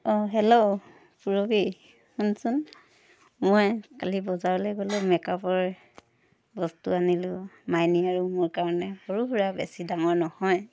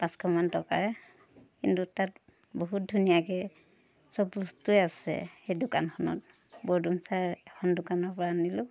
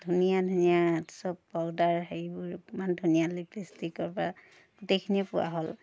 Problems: background sounds at intervals, background conversations at intervals